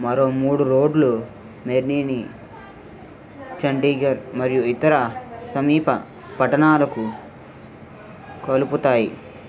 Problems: constant background noise, background conversations at intervals